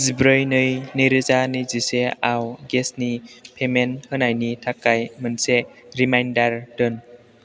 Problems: constant background noise